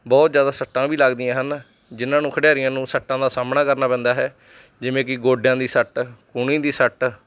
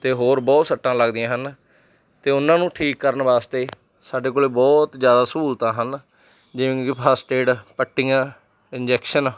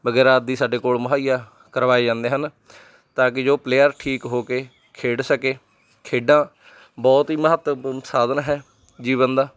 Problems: background sounds at intervals